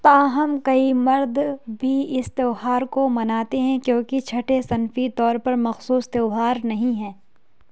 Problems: none marked